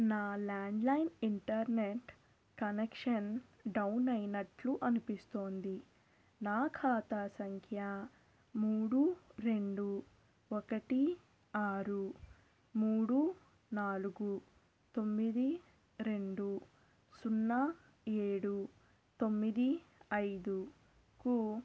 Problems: constant background noise, low volume